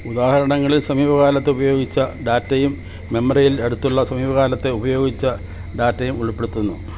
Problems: constant background noise